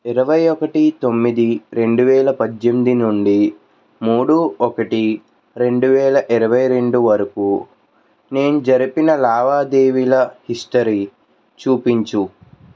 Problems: constant background noise